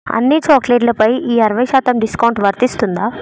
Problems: background sounds at intervals